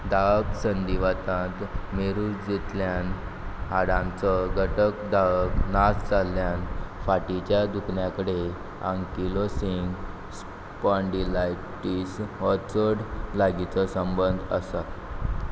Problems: none marked